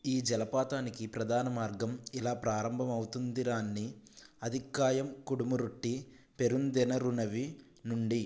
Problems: none marked